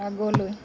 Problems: continuous background conversations